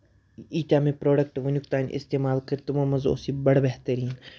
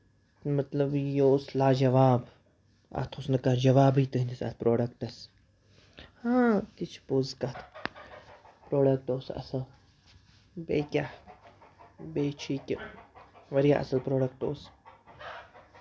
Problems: background sounds at intervals